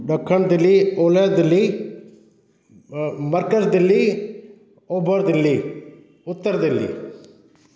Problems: constant background noise, echo